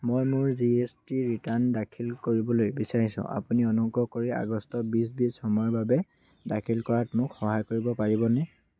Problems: constant background noise